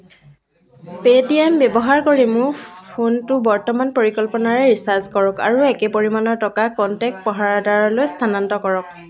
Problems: low volume